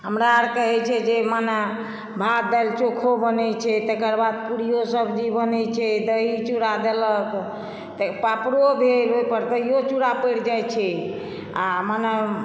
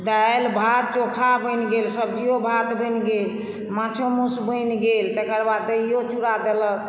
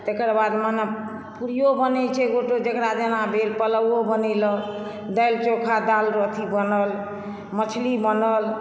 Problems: none marked